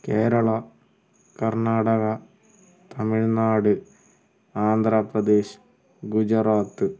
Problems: background sounds at intervals, low volume